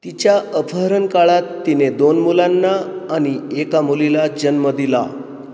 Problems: none marked